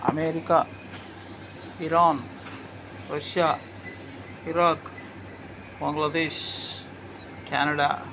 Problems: none marked